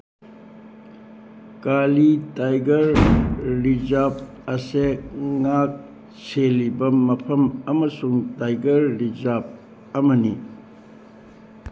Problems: background sounds at intervals